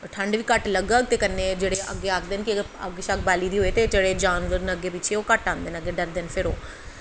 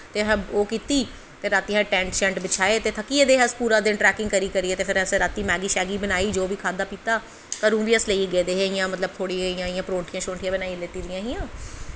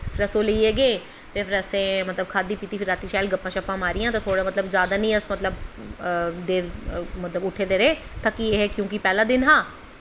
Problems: none marked